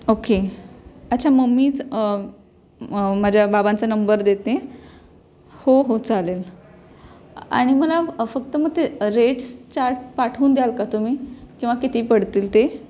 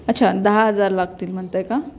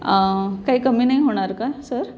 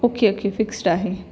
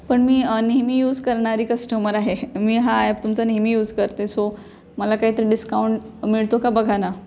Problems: none marked